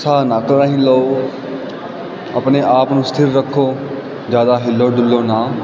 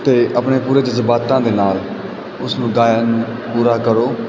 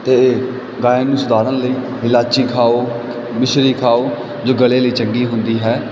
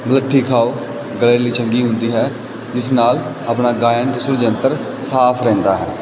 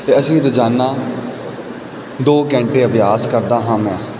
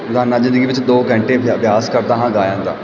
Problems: none marked